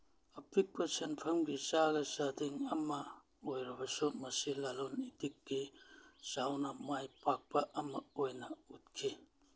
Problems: none marked